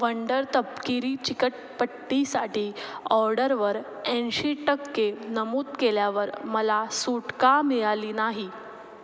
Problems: background sounds at intervals, echo